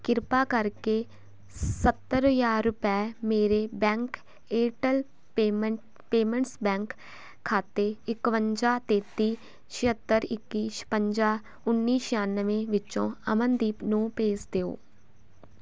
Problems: constant background noise